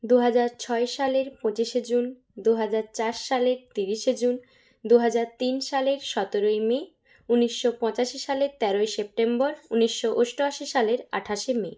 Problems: background sounds at intervals